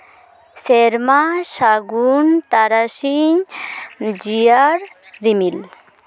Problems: constant background noise, background conversations at intervals